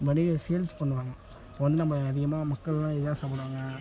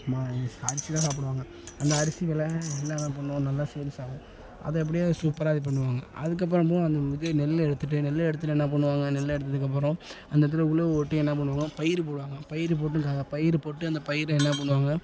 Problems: background conversations at intervals